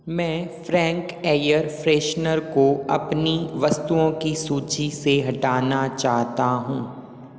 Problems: echo